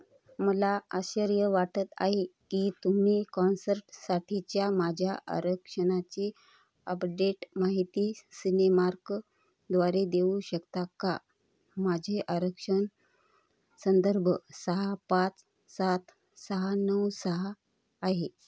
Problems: none marked